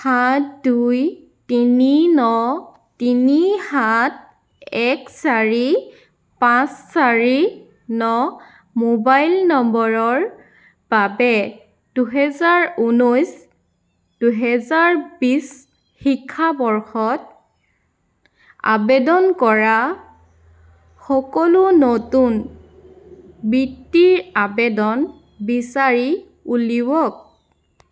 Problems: background sounds at intervals